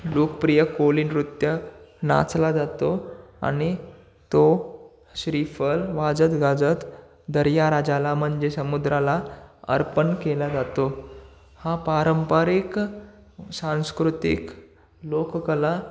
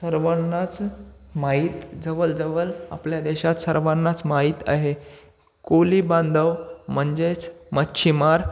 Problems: constant background noise